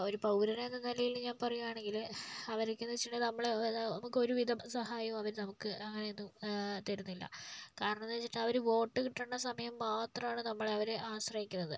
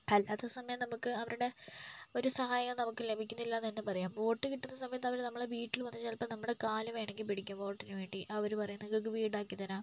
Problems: low volume